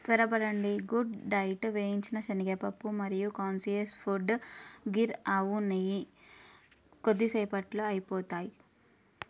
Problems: none marked